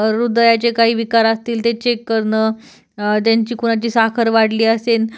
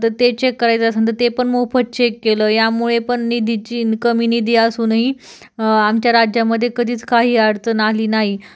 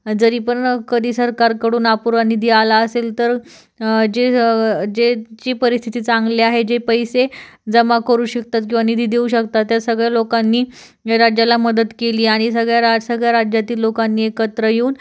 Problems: none marked